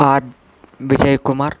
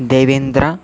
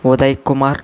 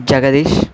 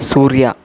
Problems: constant background noise, background conversations at intervals